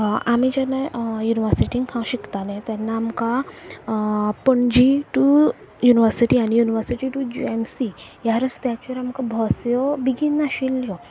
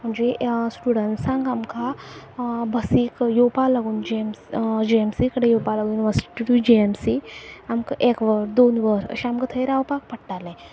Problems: low volume